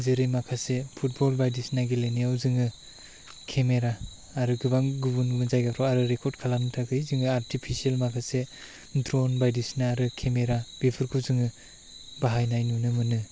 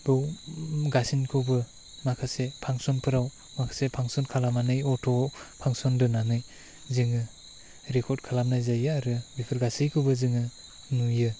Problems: background sounds at intervals